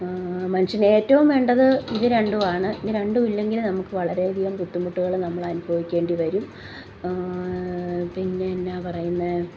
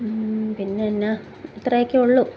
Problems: none marked